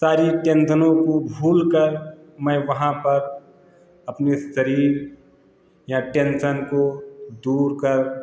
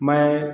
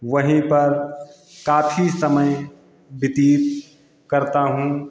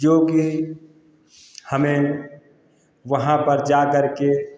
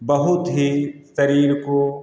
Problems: constant background noise